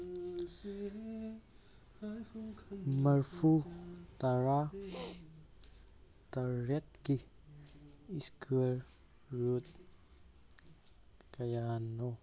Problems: background sounds at intervals